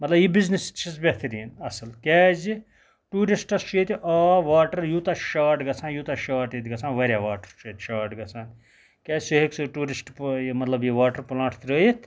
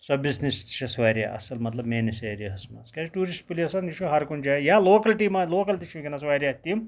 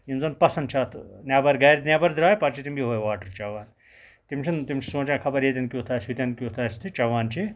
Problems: background sounds at intervals